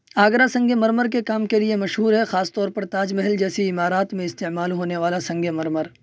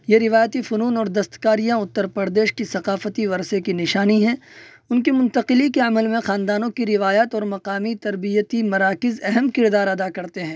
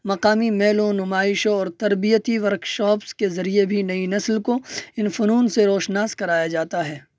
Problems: none marked